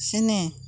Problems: none marked